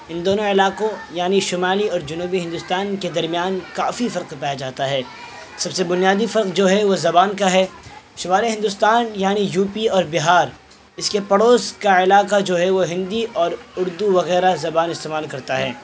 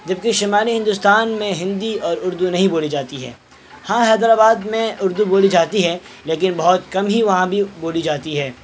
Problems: constant background noise